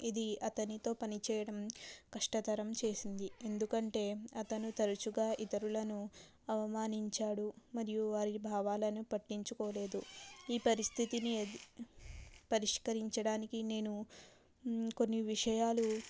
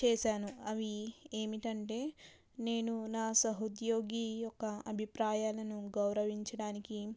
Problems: none marked